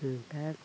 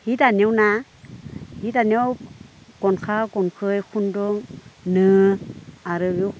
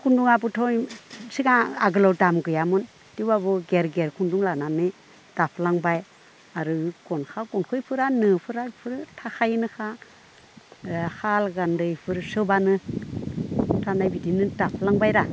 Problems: none marked